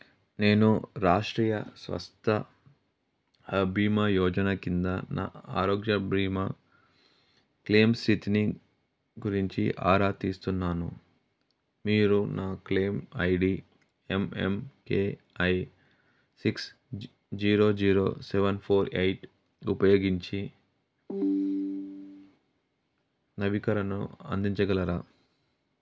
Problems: background sounds at intervals